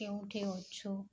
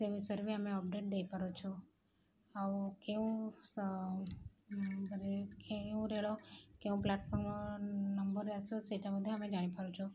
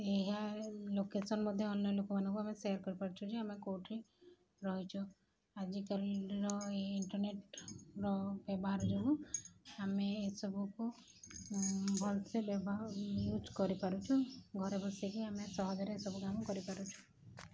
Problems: background sounds at intervals